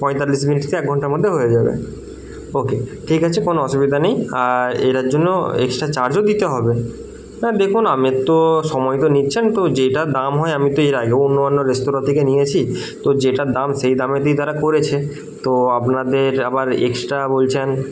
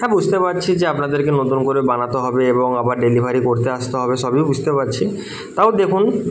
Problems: background conversations at intervals